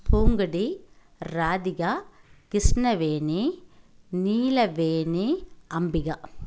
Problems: none marked